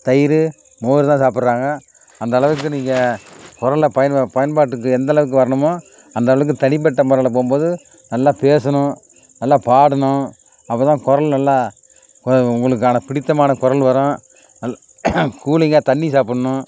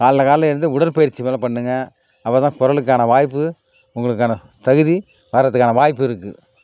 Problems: background sounds at intervals